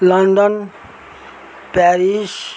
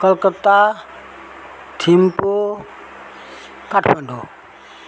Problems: constant background noise